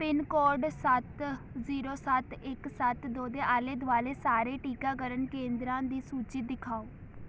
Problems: none marked